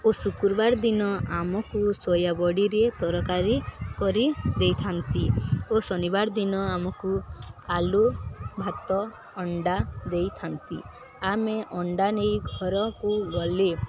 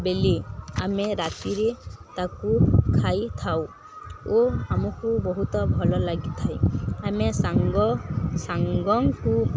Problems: constant background noise, continuous background conversations